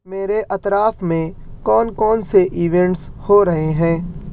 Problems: none marked